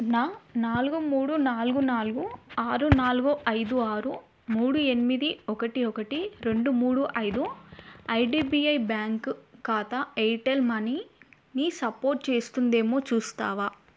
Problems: none marked